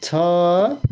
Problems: none marked